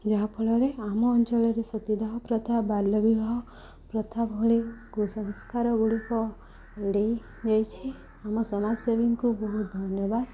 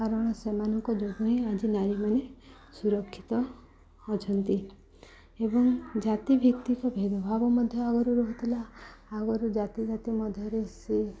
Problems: continuous background conversations